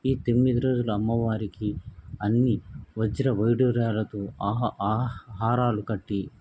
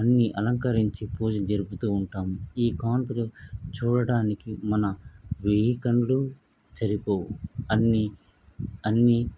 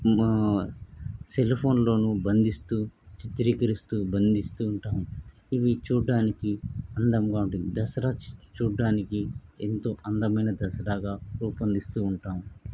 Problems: background sounds at intervals